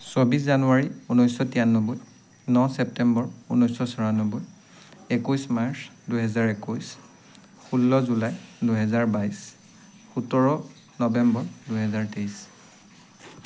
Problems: constant background noise